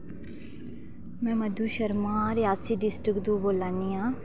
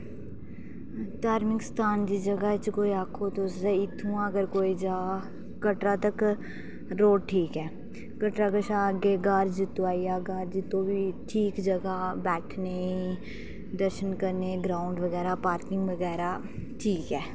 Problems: background sounds at intervals